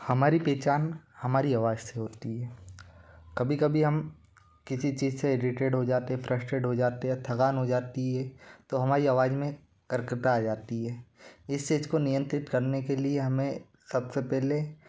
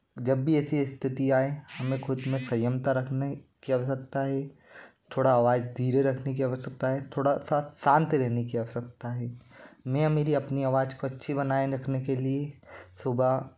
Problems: constant background noise